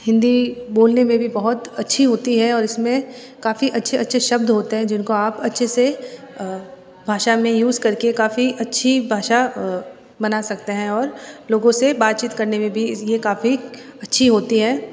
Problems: background sounds at intervals, background conversations at intervals